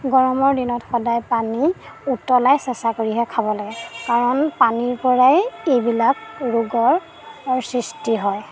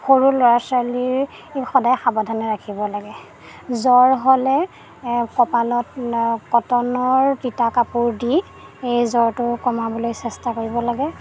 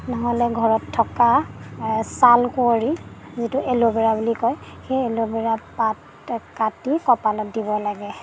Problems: background sounds at intervals